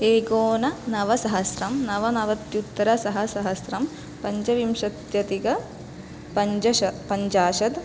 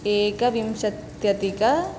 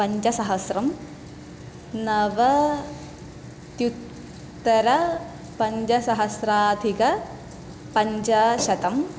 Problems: none marked